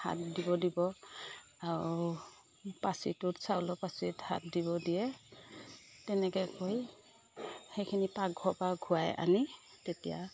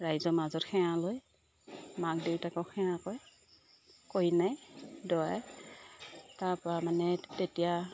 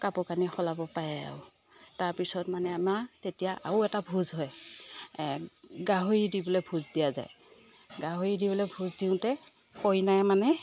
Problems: none marked